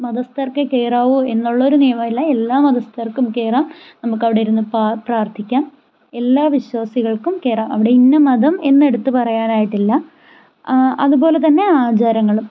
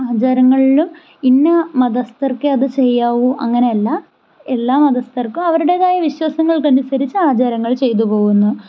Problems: none marked